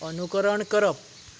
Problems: background sounds at intervals